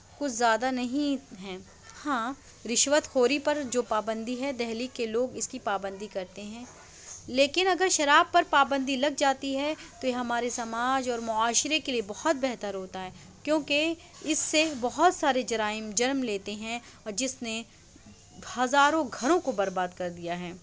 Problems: constant background noise, low volume